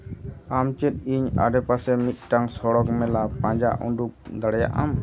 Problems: background sounds at intervals